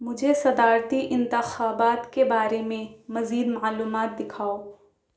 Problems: none marked